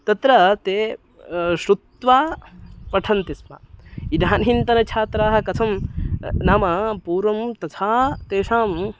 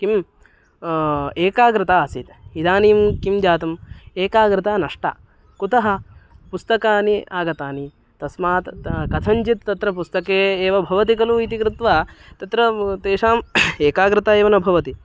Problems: background sounds at intervals, background conversations at intervals